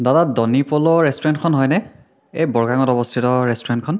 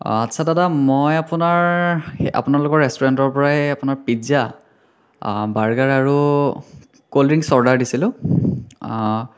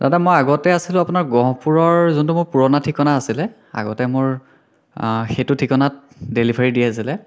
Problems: none marked